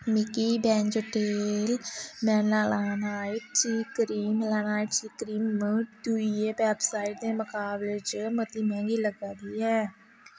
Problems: constant background noise